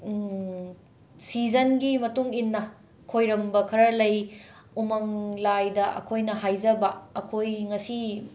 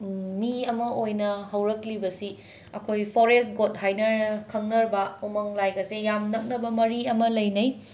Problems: constant background noise